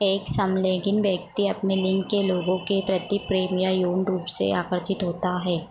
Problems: echo